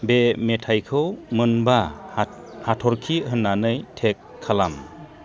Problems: none marked